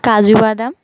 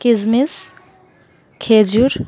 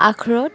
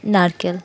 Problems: background sounds at intervals